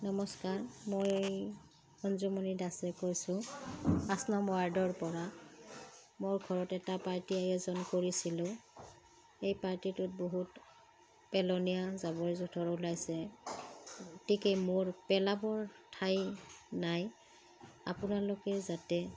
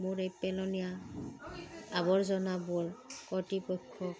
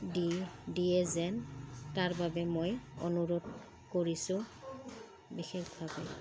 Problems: none marked